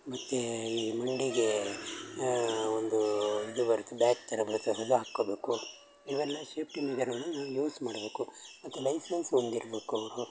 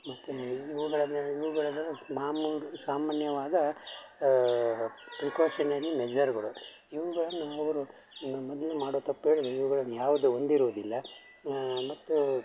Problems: constant background noise